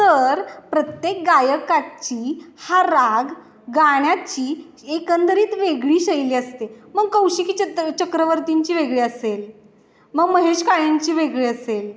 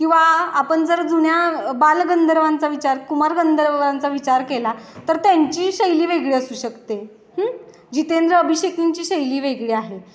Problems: constant background noise, background conversations at intervals, echo